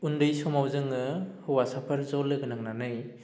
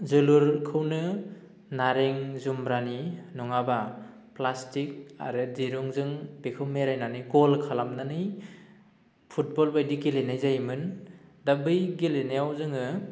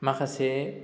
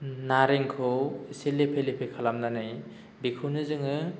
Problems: low volume